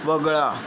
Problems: constant background noise